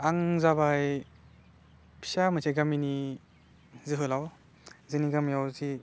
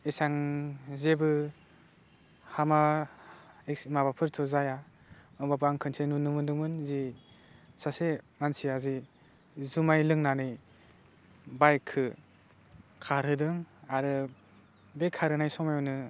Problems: low volume